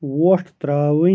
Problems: background sounds at intervals